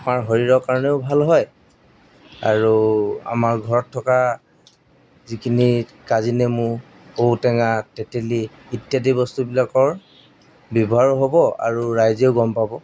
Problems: background sounds at intervals